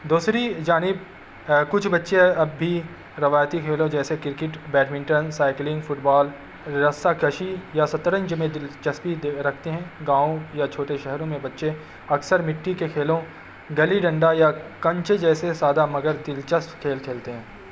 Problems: constant background noise